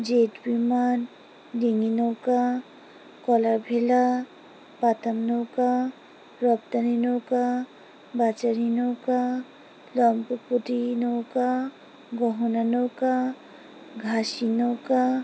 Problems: background sounds at intervals